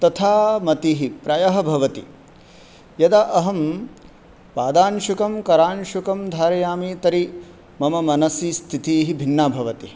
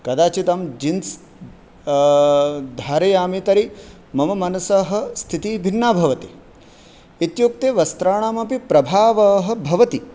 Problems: none marked